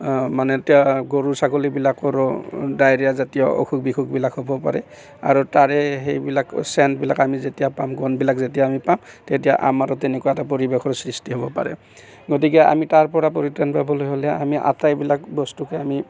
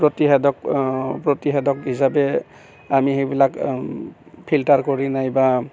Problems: background sounds at intervals